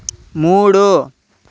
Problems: constant background noise